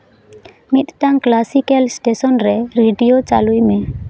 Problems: none marked